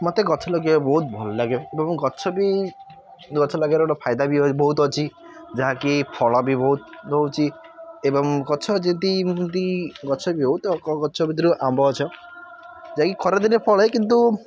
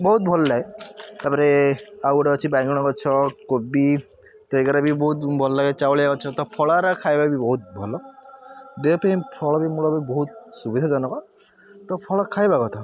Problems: background sounds at intervals